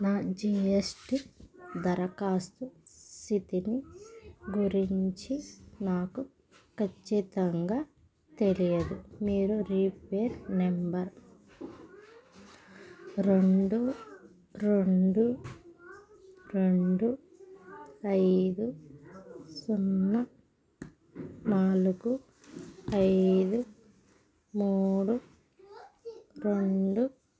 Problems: background sounds at intervals